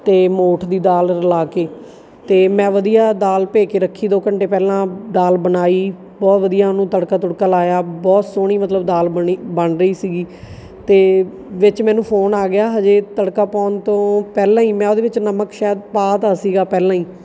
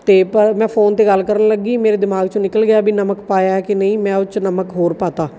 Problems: none marked